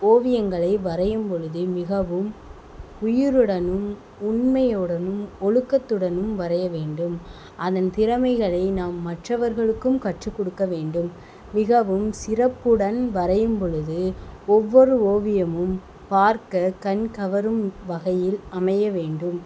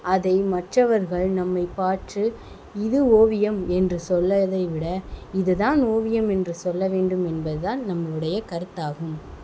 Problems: constant background noise